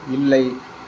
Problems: constant background noise